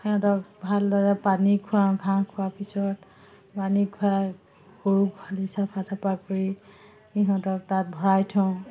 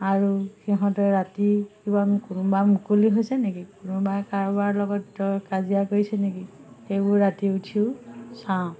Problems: none marked